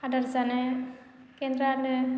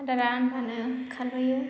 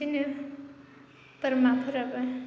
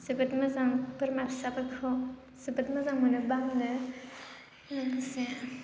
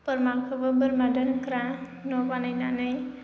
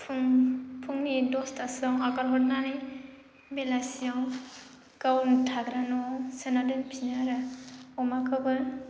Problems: constant background noise